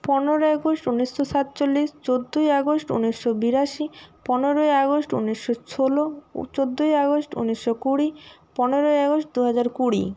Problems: none marked